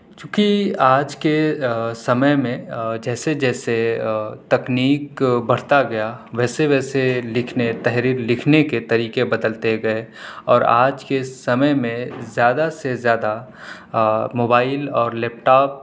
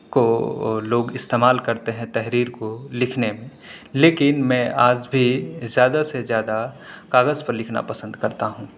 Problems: background sounds at intervals